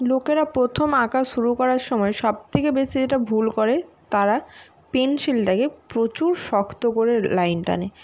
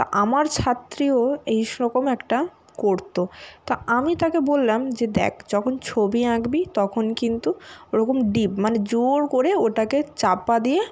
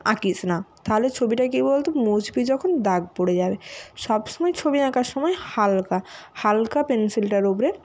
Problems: none marked